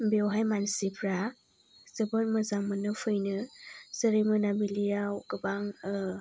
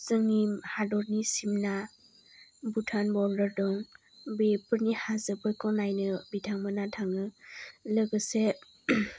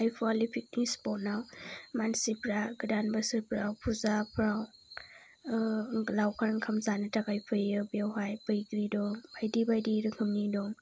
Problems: low volume